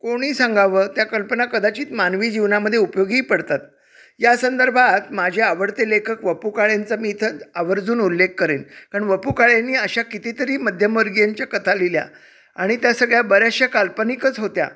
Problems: none marked